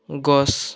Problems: background conversations at intervals